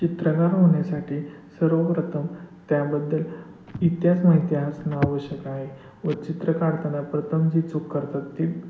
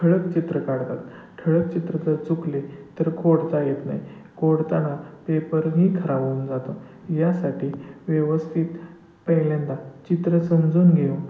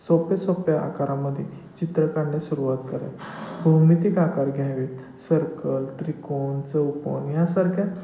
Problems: constant background noise